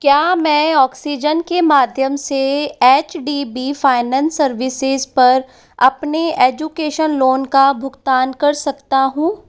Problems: echo